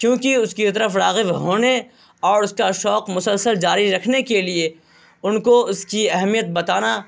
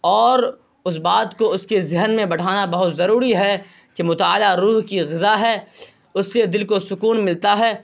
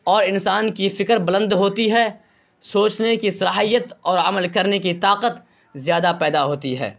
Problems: constant background noise